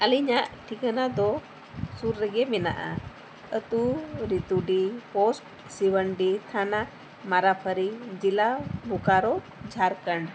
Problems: constant background noise